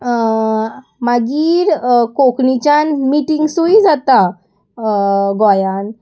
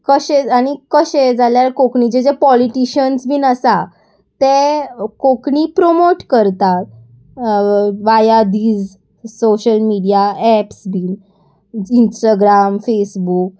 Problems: constant background noise